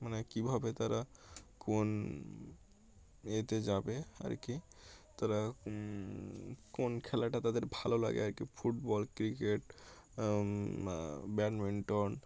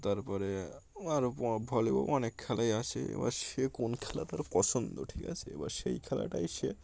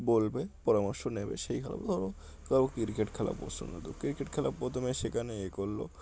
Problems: none marked